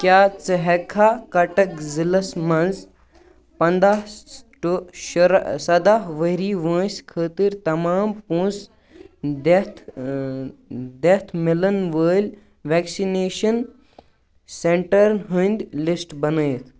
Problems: constant background noise